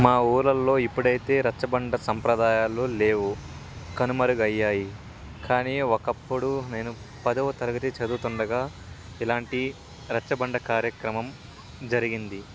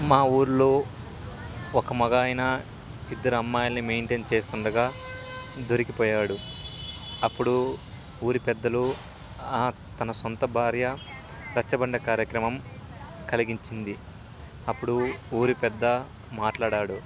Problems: constant background noise, continuous background conversations